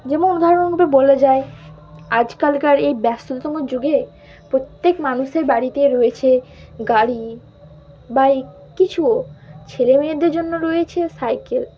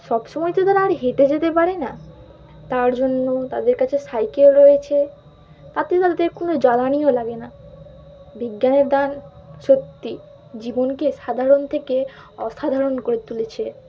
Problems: constant background noise, continuous background conversations